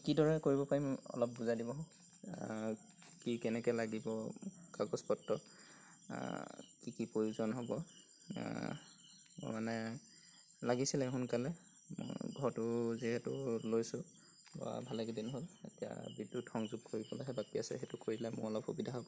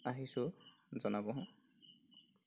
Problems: constant background noise